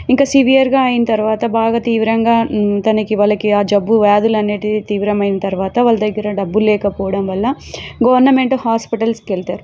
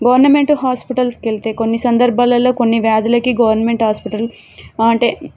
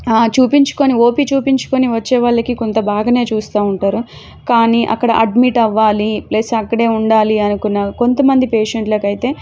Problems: background sounds at intervals